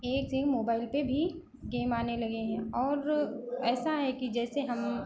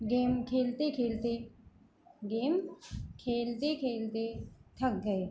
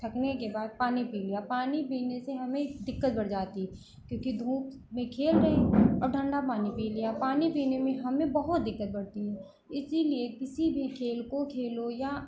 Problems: background sounds at intervals